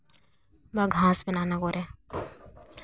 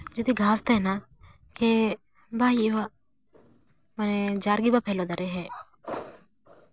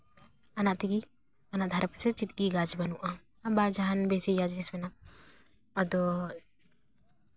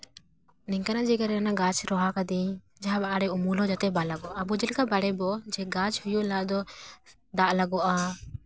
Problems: background sounds at intervals